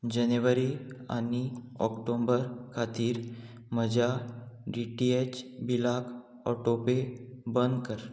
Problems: none marked